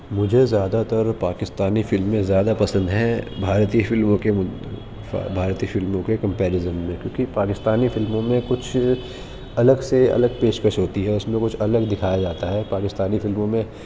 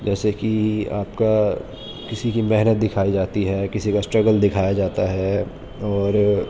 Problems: constant background noise